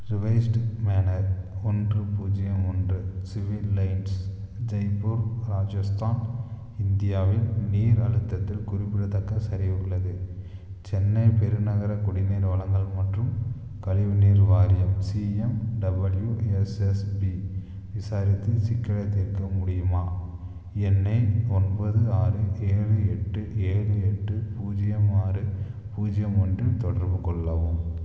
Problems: low volume